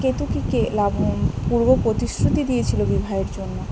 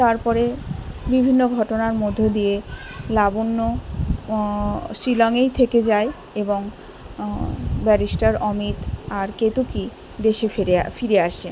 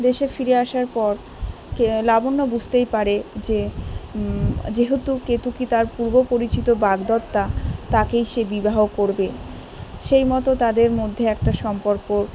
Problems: continuous background conversations